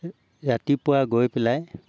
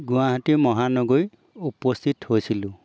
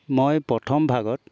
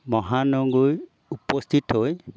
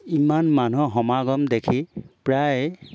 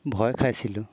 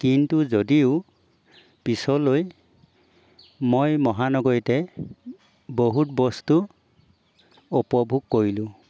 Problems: background sounds at intervals